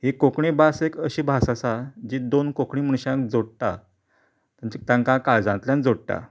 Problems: background sounds at intervals